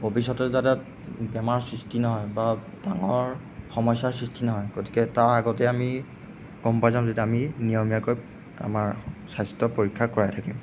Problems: background sounds at intervals